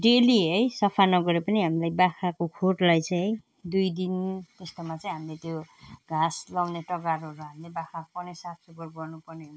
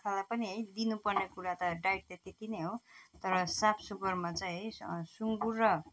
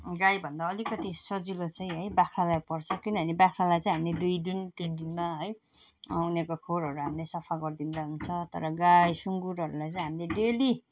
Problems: none marked